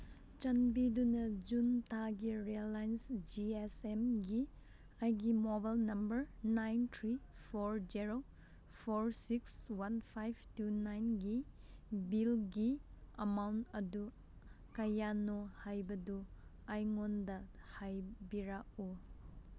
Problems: none marked